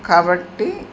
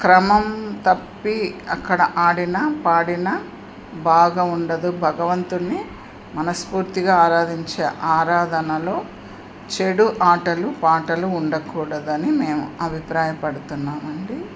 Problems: constant background noise